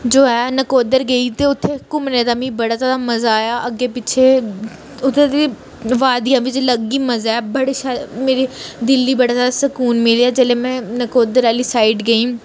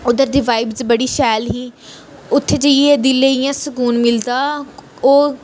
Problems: none marked